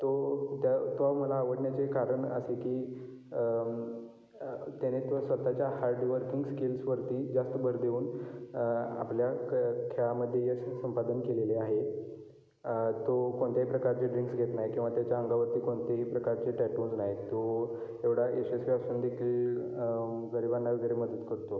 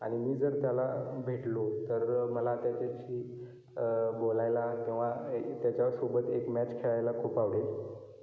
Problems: echo